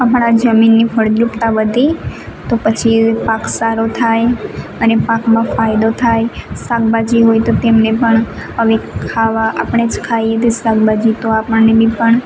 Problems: constant background noise